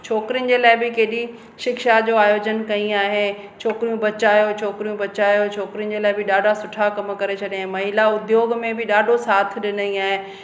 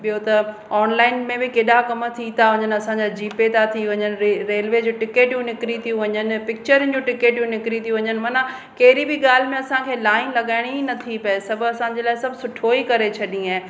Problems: constant background noise, echo